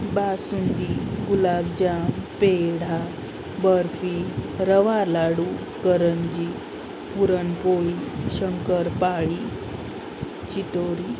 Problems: constant background noise